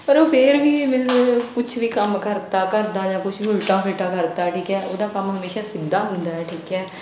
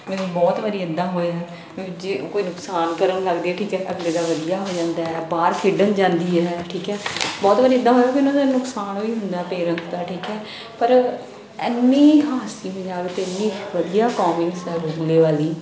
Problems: background sounds at intervals, background conversations at intervals